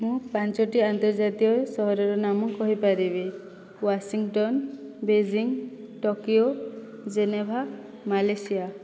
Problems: none marked